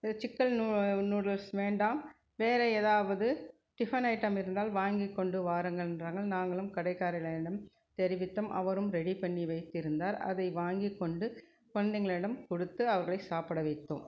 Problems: low volume